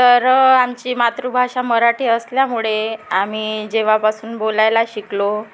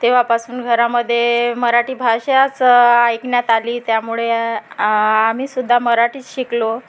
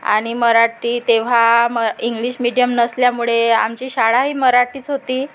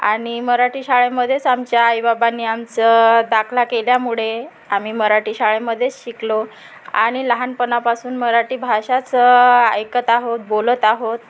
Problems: constant background noise, background conversations at intervals